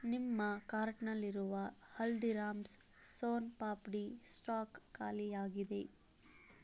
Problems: none marked